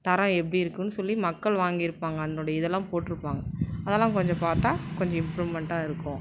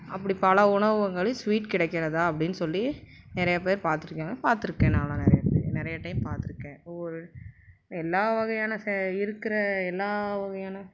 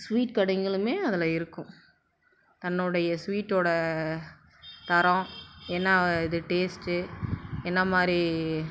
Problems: background sounds at intervals